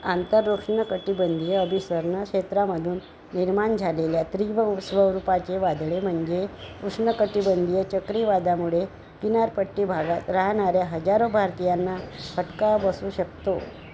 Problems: none marked